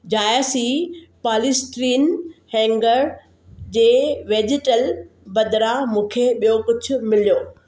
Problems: none marked